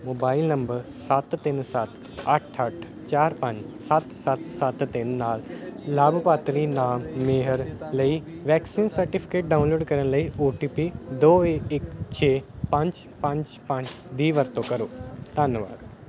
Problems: none marked